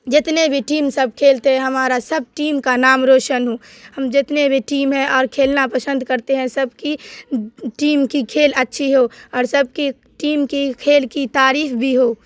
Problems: constant background noise